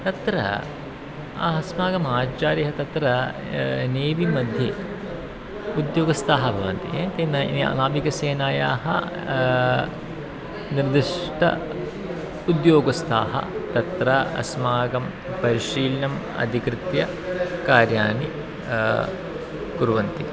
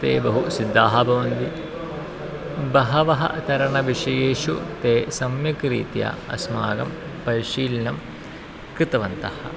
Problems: constant background noise, continuous background conversations